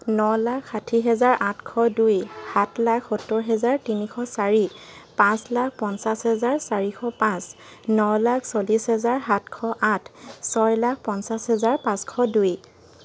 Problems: background sounds at intervals